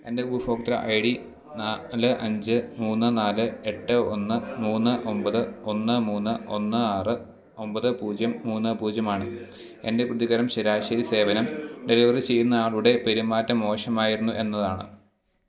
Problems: background sounds at intervals